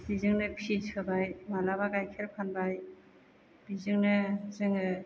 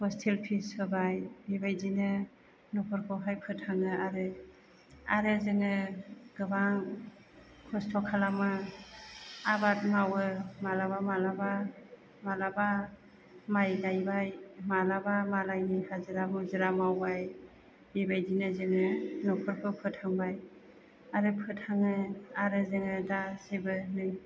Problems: none marked